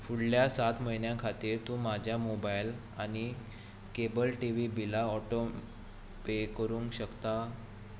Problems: constant background noise